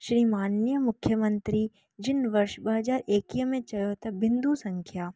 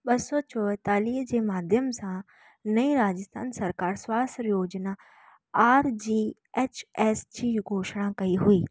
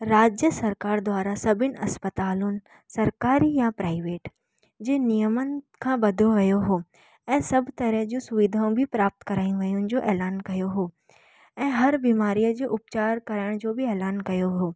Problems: none marked